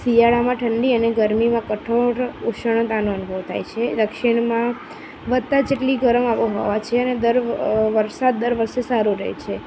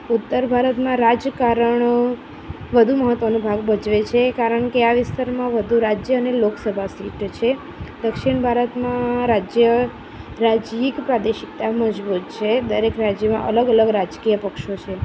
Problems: constant background noise